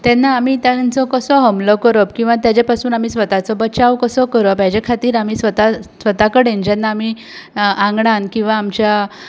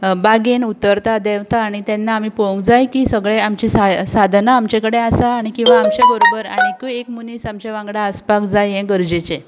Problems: background sounds at intervals